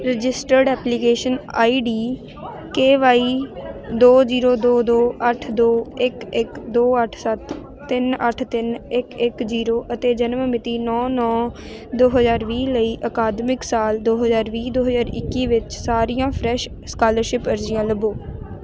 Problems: constant background noise